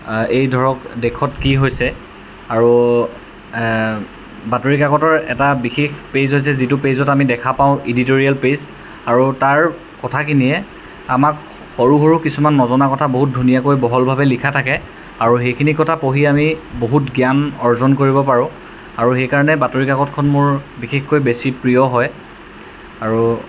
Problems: none marked